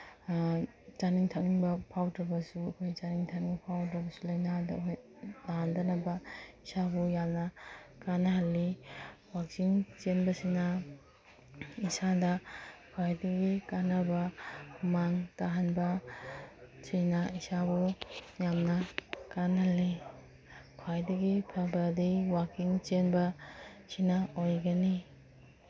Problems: background sounds at intervals